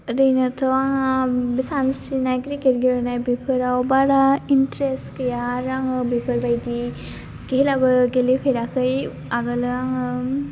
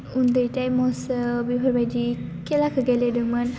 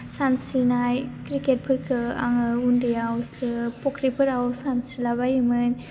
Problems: low volume